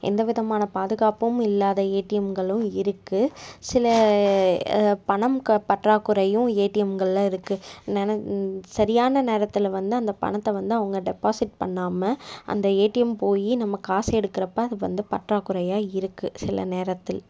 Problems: none marked